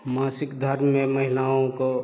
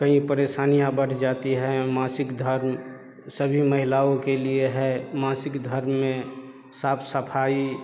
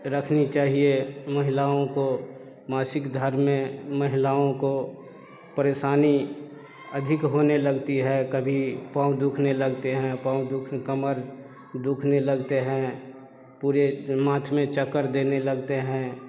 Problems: low volume